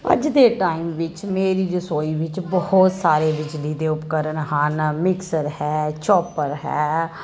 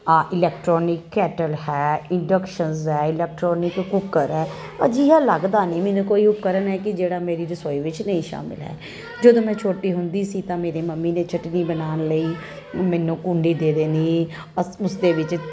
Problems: none marked